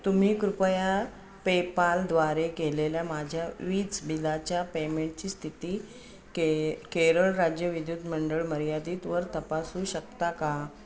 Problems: constant background noise, background conversations at intervals